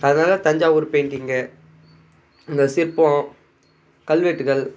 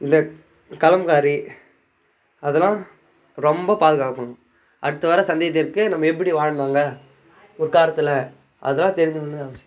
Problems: background sounds at intervals, background conversations at intervals